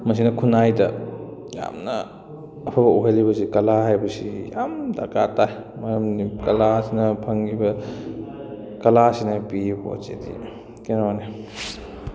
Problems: background conversations at intervals